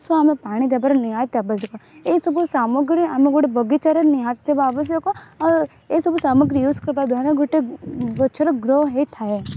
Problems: constant background noise